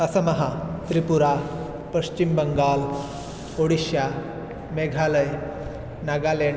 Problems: none marked